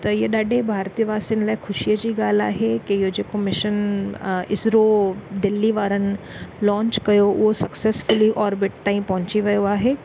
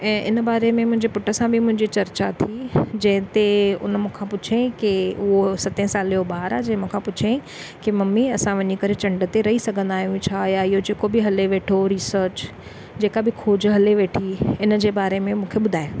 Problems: none marked